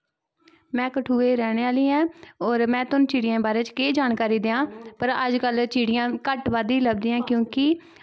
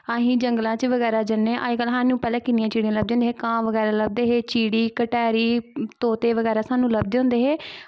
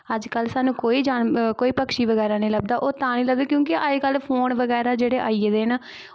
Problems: constant background noise